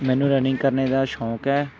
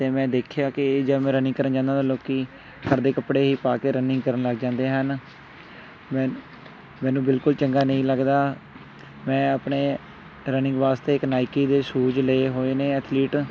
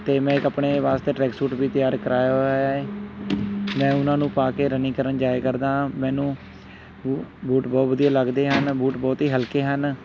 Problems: constant background noise